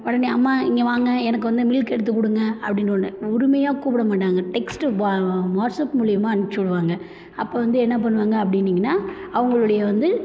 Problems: none marked